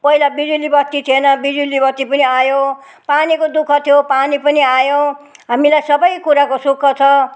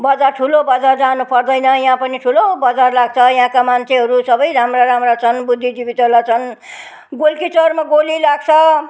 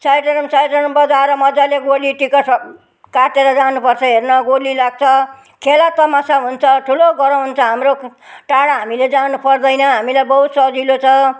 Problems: background conversations at intervals